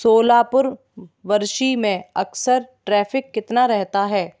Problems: none marked